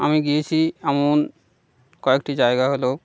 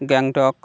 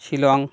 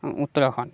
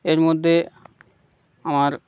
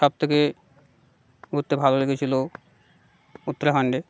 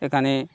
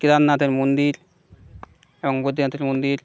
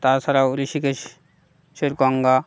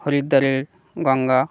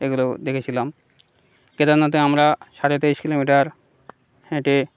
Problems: background sounds at intervals, background conversations at intervals